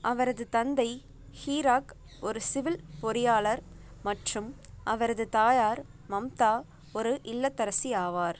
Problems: constant background noise